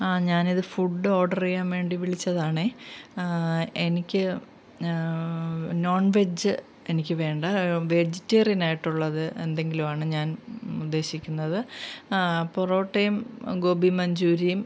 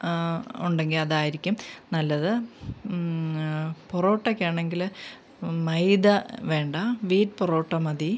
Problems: background sounds at intervals